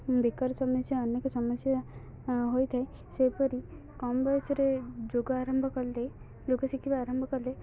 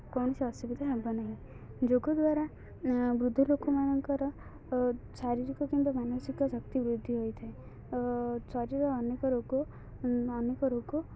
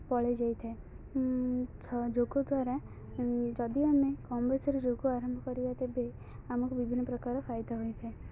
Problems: continuous background conversations, low volume